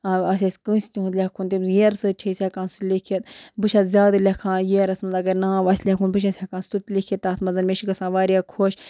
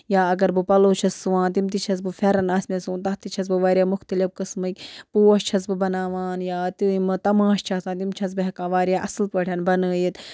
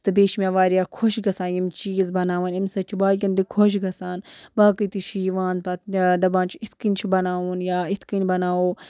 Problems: background sounds at intervals